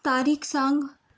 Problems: none marked